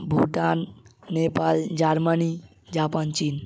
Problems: constant background noise